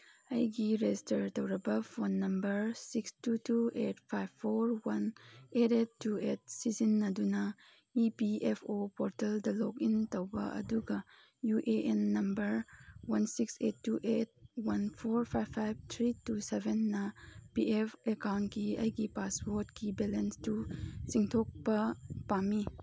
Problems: none marked